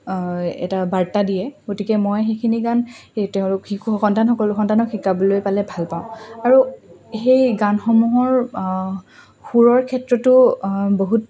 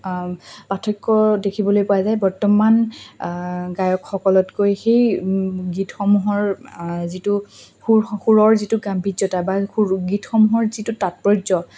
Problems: constant background noise, background conversations at intervals